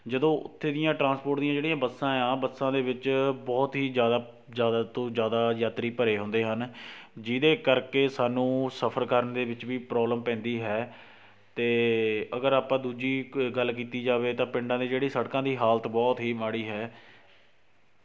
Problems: none marked